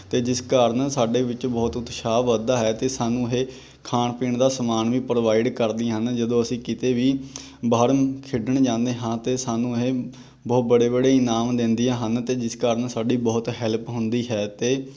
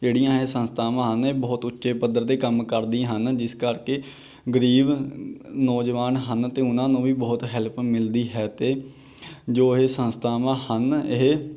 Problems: none marked